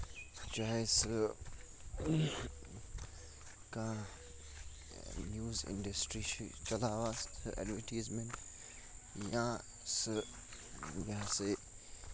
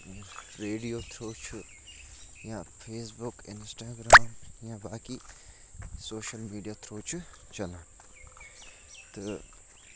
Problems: constant background noise, low volume